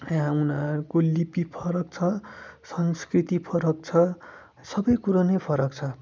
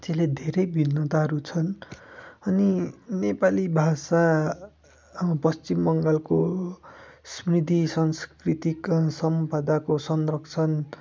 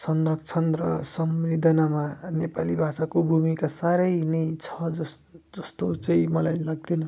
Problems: background sounds at intervals